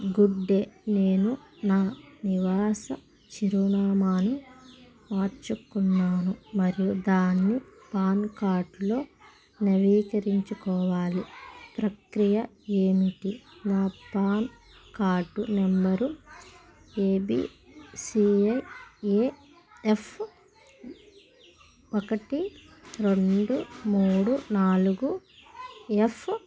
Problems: constant background noise